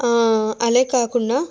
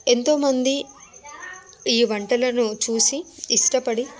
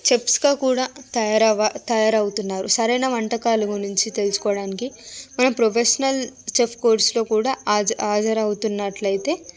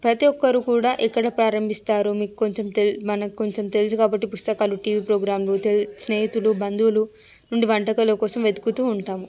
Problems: background sounds at intervals, background conversations at intervals